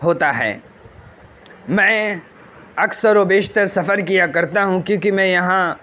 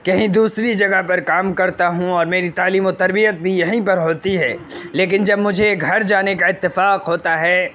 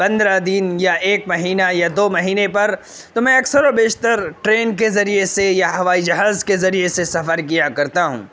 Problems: constant background noise